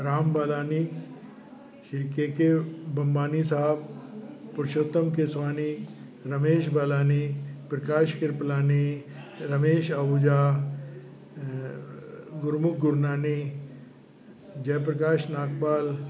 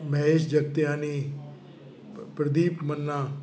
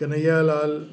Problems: constant background noise